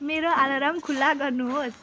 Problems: background sounds at intervals